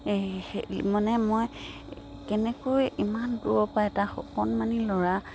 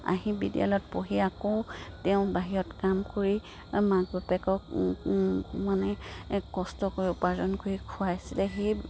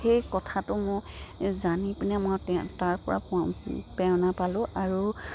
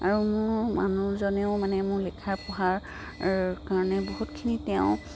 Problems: background sounds at intervals